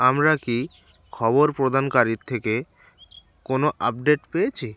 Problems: none marked